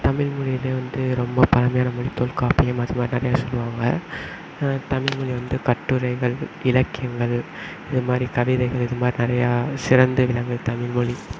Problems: none marked